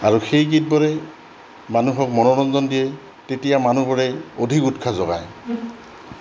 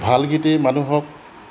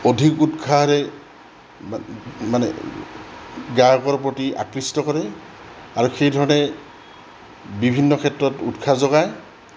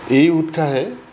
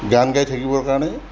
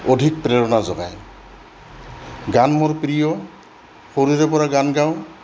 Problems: background sounds at intervals